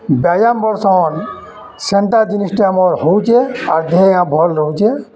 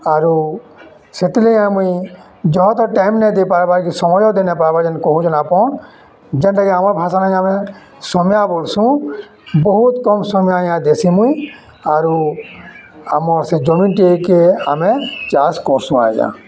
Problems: constant background noise, continuous background conversations